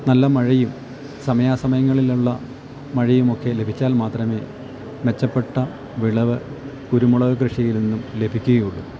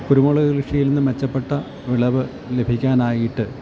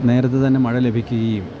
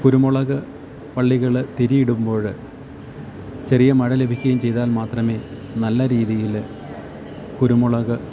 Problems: constant background noise, low volume